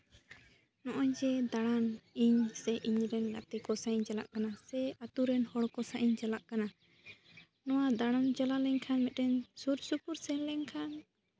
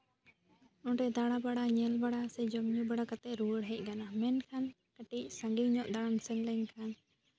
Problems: none marked